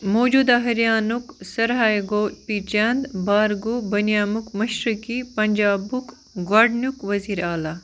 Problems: constant background noise